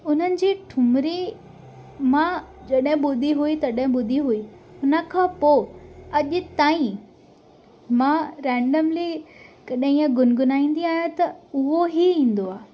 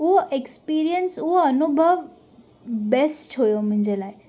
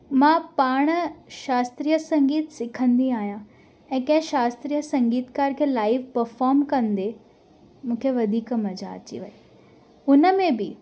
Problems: constant background noise